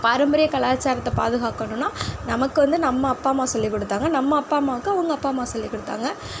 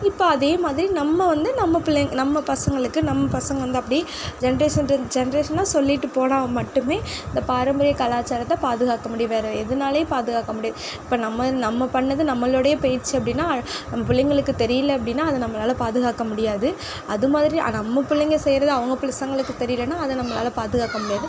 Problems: background sounds at intervals